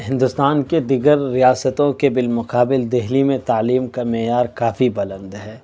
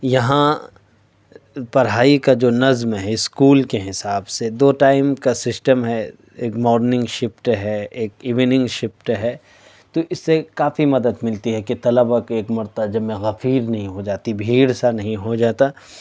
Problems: none marked